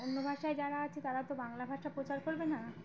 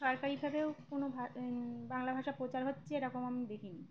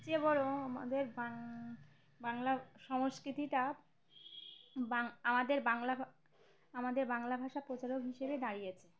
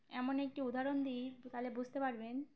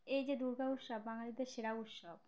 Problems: constant background noise, continuous background conversations